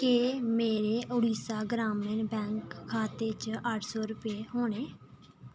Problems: none marked